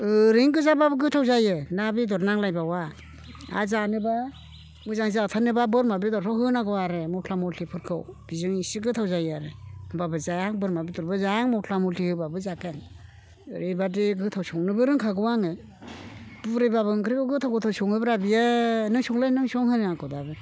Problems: none marked